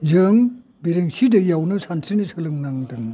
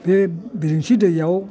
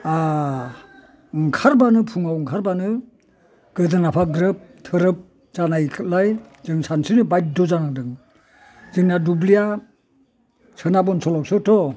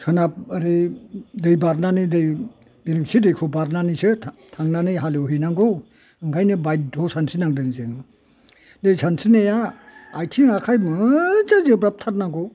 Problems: low volume